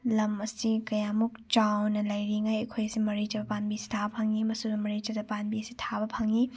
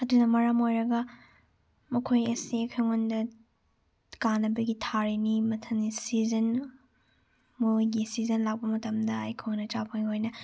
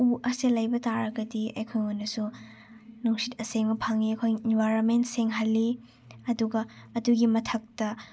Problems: none marked